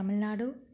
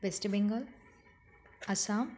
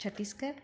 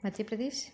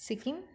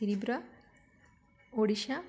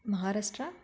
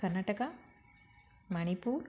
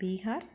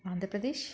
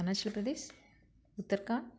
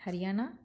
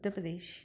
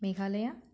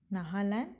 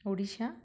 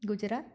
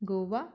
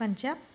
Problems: background sounds at intervals